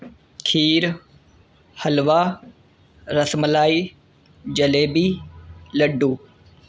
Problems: constant background noise